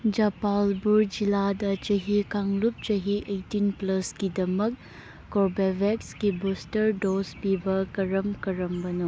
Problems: none marked